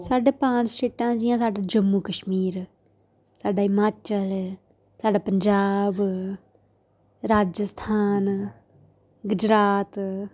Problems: none marked